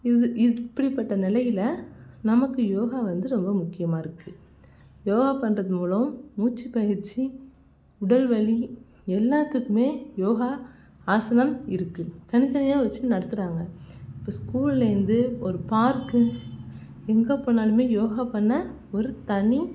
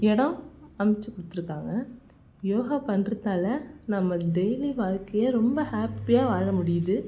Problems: none marked